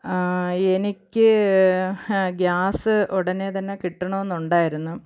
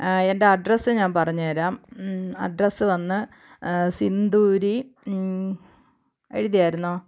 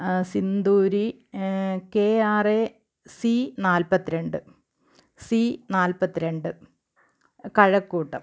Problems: background sounds at intervals